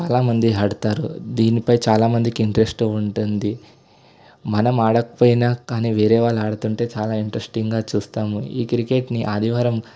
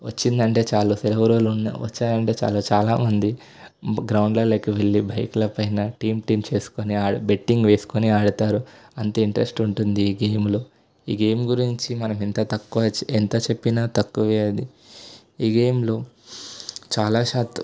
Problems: constant background noise